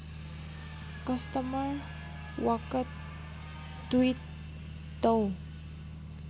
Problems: constant background noise